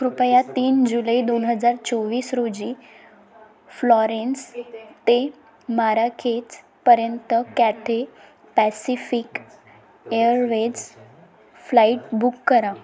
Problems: background sounds at intervals, background conversations at intervals